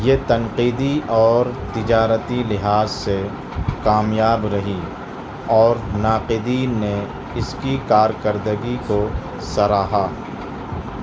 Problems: constant background noise, background conversations at intervals